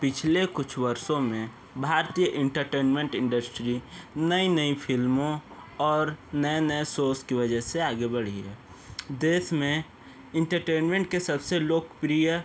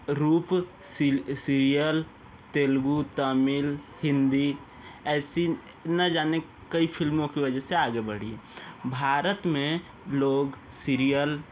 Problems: constant background noise